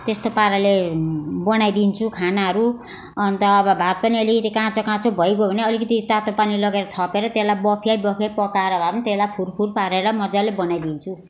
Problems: constant background noise